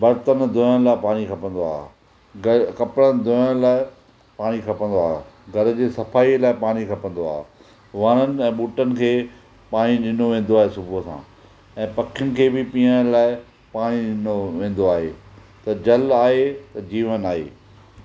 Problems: none marked